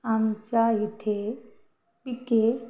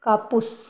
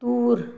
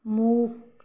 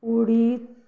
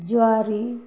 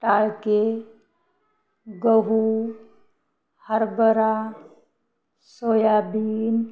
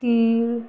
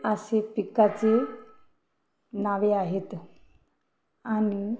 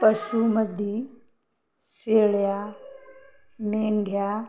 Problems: none marked